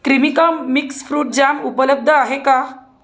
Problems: background sounds at intervals